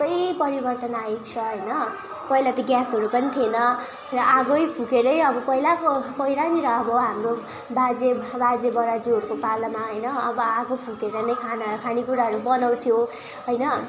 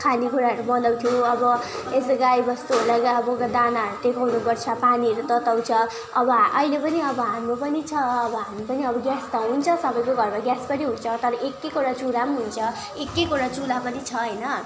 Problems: constant background noise, continuous background conversations